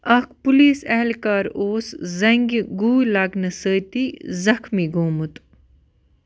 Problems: none marked